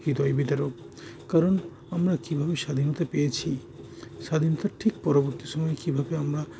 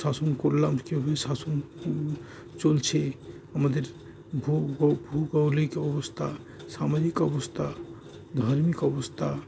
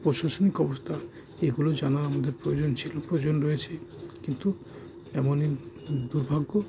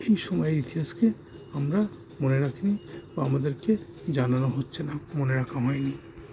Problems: constant background noise